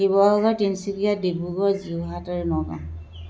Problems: constant background noise